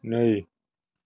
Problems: none marked